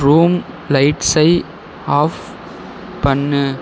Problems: background sounds at intervals